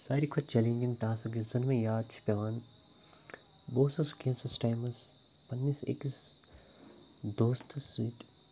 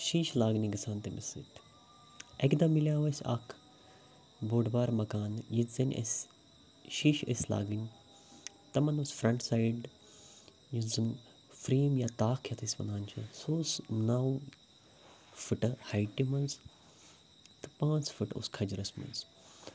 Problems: none marked